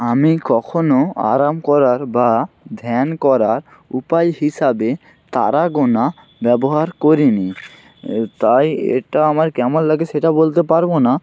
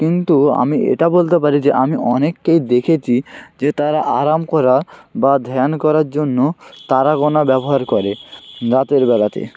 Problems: constant background noise